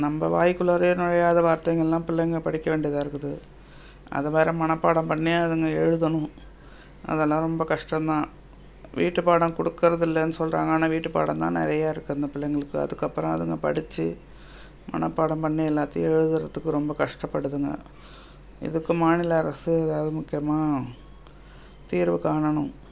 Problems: background sounds at intervals